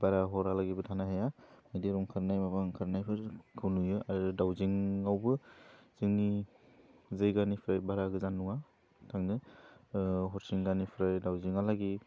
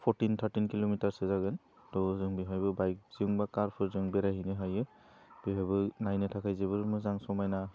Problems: low volume